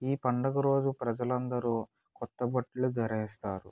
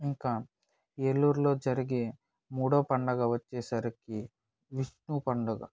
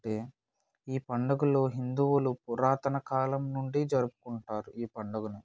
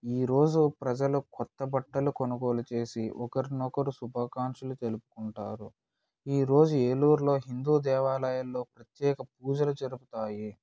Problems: none marked